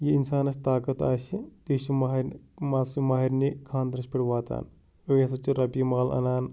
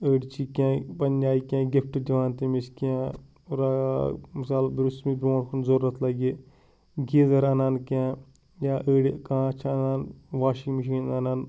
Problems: background sounds at intervals